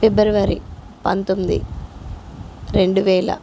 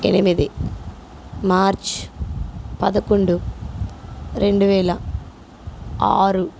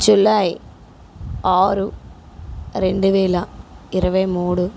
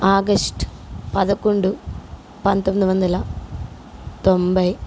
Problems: none marked